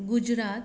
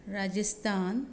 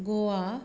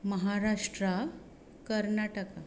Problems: none marked